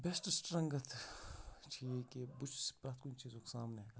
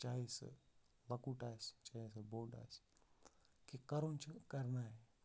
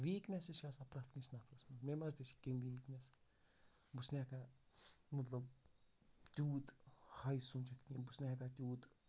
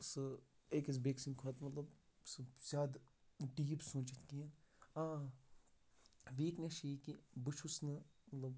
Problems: background sounds at intervals, low volume